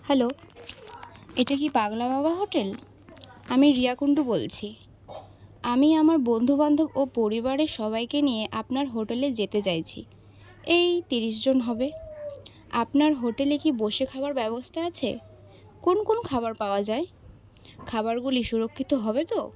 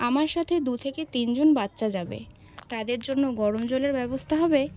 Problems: none marked